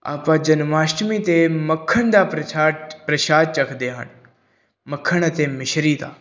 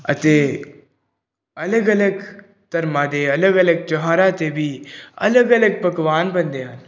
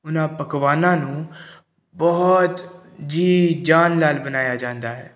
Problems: background sounds at intervals